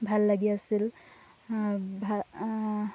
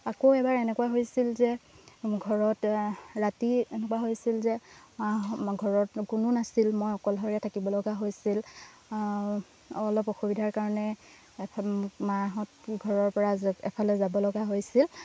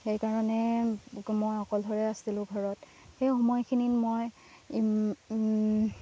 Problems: constant background noise